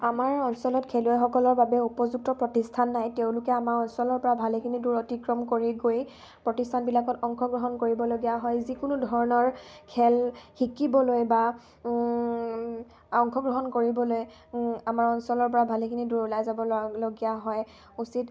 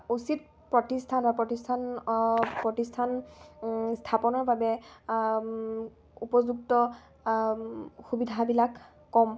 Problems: constant background noise